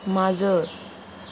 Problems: constant background noise